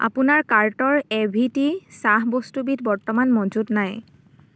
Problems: none marked